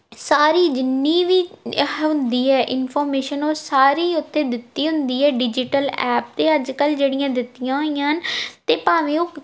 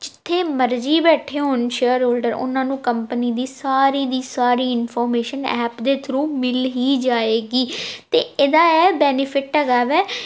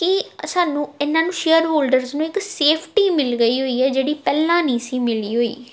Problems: none marked